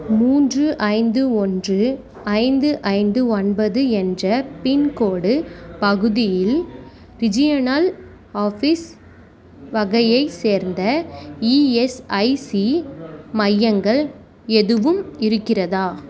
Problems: background conversations at intervals